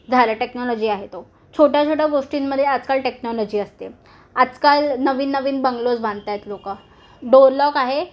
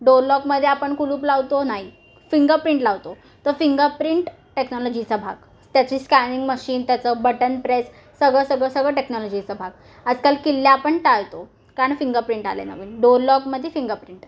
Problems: background sounds at intervals